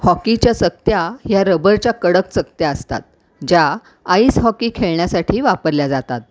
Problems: none marked